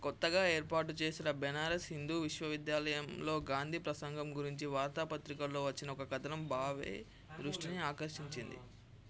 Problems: low volume